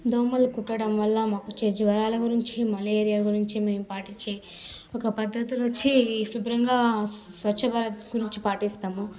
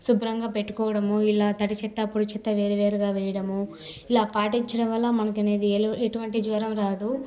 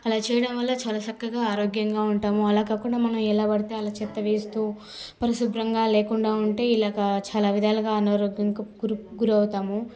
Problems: constant background noise, background conversations at intervals